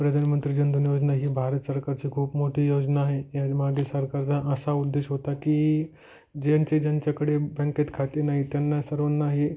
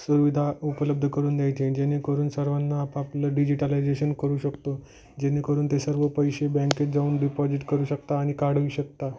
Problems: background sounds at intervals